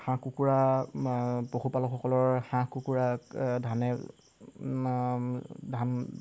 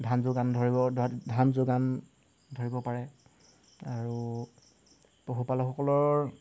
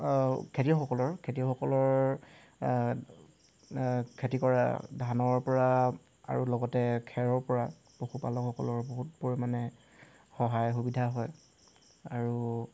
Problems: constant background noise